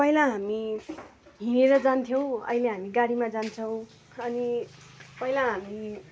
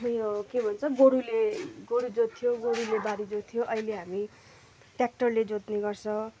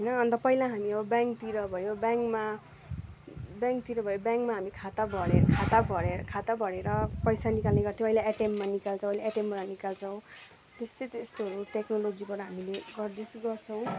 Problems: continuous background conversations